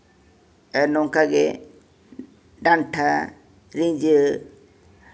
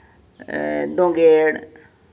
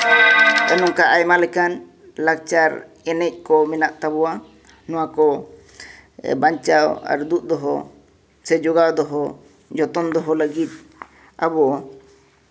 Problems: background sounds at intervals